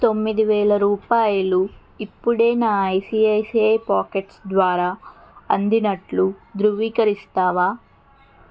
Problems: constant background noise